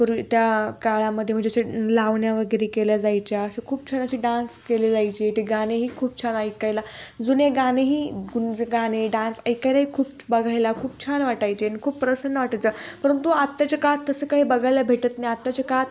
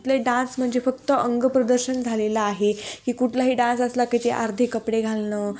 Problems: background sounds at intervals